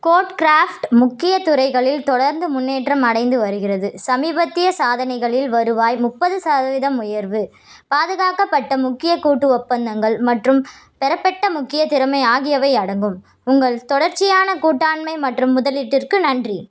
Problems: none marked